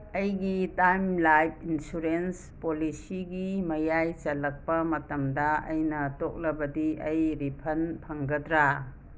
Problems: background sounds at intervals